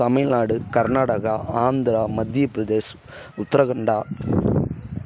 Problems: none marked